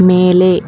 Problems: constant background noise